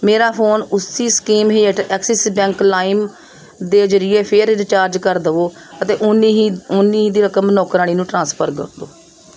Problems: background sounds at intervals